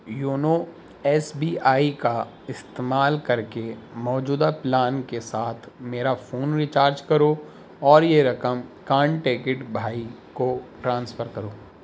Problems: constant background noise